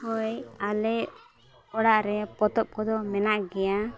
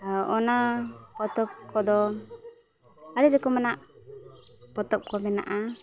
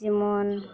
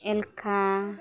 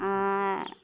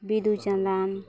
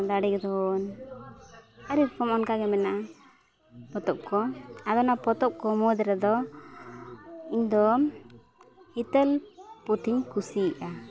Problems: continuous background conversations